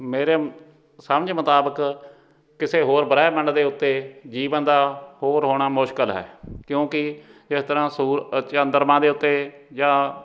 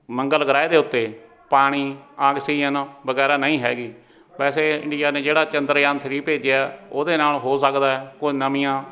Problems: background sounds at intervals, background conversations at intervals